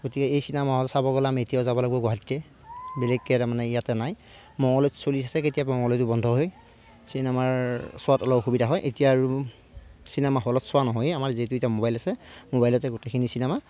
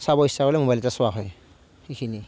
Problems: none marked